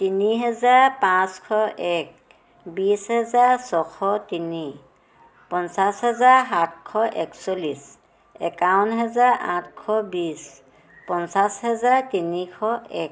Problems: background sounds at intervals